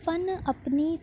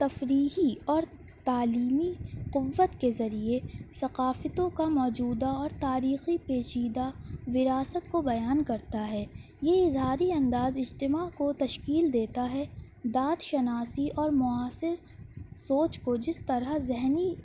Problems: none marked